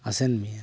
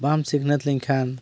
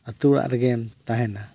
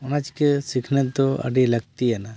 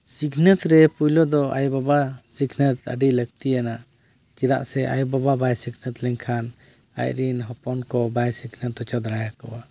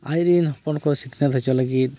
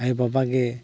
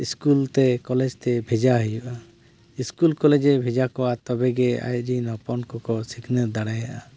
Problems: none marked